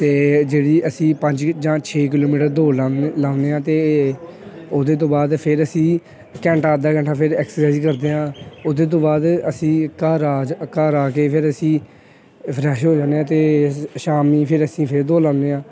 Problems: constant background noise